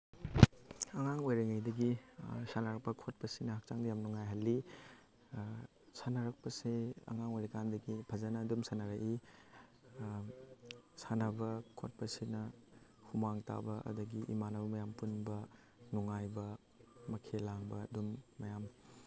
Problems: background sounds at intervals